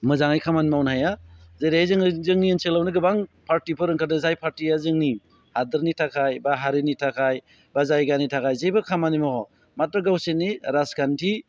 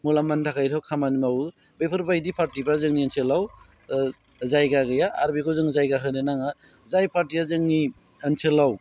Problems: low volume